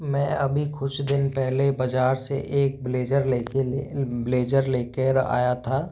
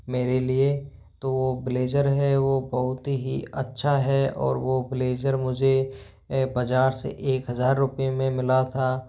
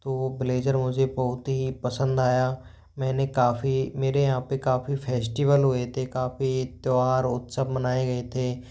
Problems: background sounds at intervals